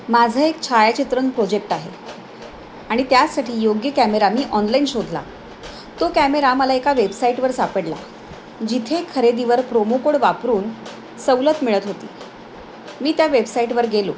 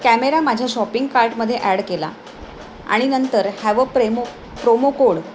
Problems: constant background noise